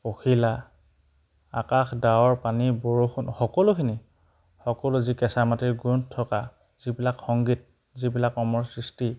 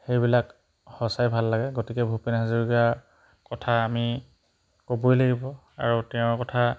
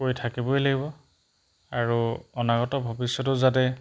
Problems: background sounds at intervals